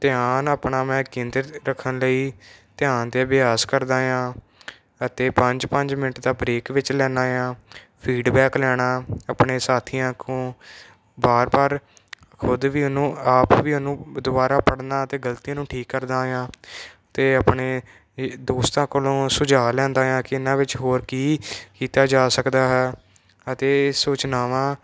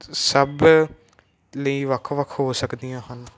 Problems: none marked